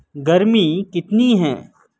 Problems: none marked